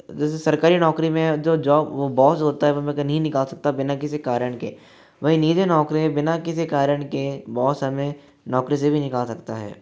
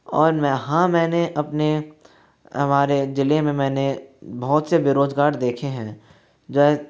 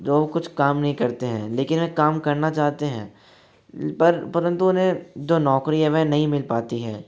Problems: background sounds at intervals